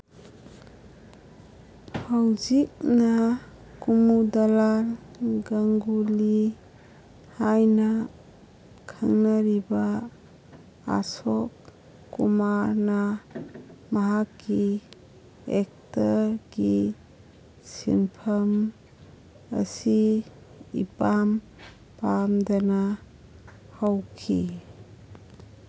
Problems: none marked